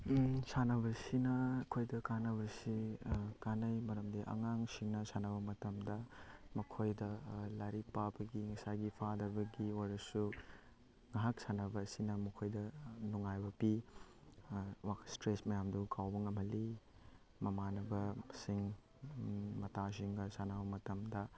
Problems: none marked